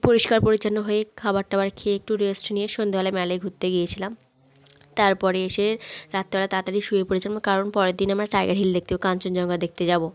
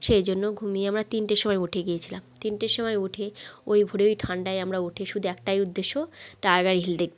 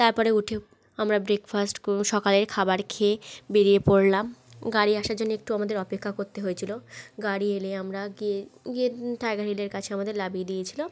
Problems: none marked